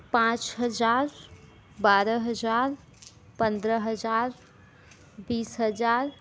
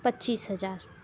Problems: constant background noise